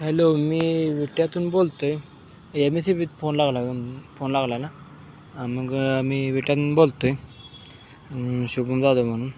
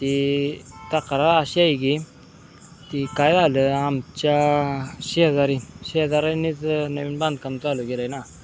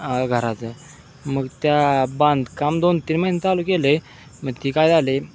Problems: constant background noise